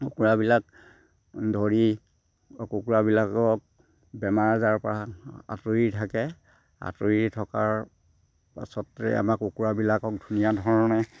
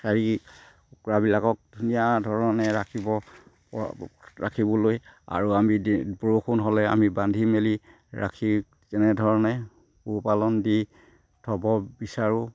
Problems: constant background noise, background conversations at intervals